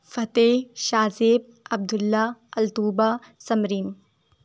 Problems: none marked